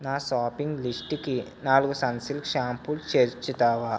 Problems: none marked